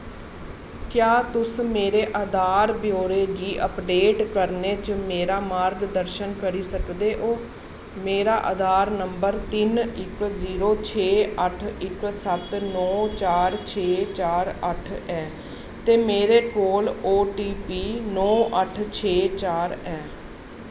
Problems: constant background noise